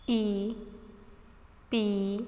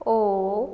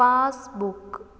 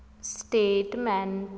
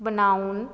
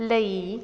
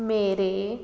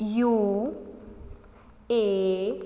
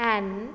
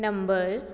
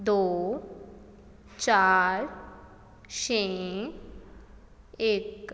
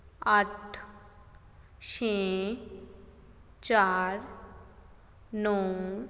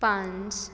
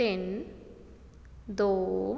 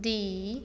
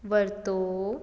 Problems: background sounds at intervals